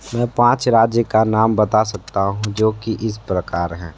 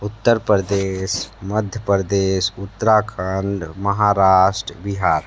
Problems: constant background noise